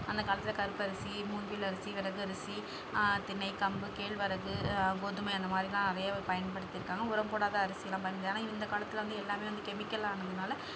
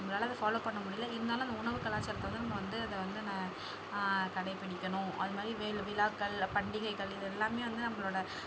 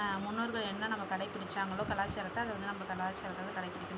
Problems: background sounds at intervals